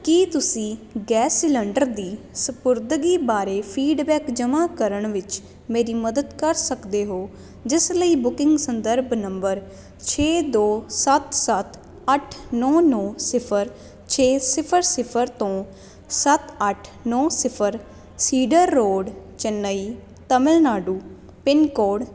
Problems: constant background noise